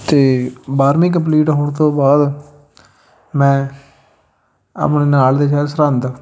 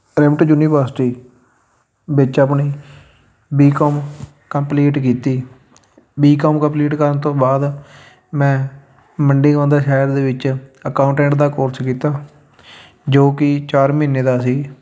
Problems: none marked